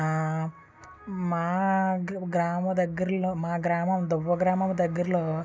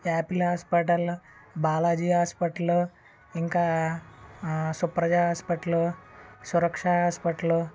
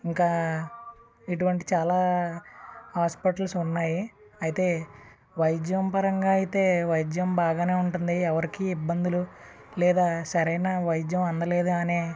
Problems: constant background noise, continuous background conversations